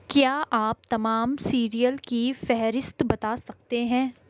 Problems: none marked